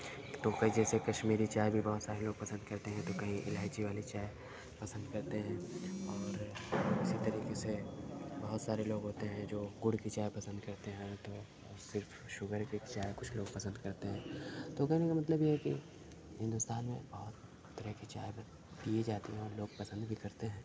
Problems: background sounds at intervals, low volume